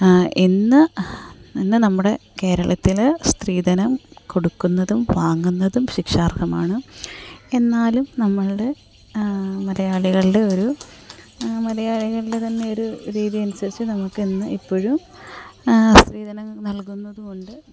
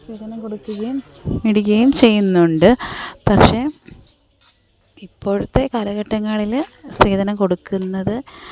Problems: background sounds at intervals, background conversations at intervals, low volume